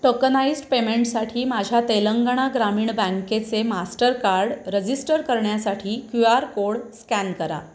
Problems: constant background noise